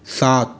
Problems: echo